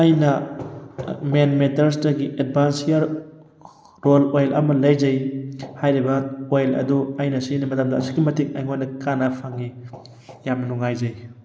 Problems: background sounds at intervals